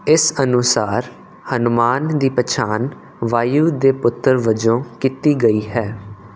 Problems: none marked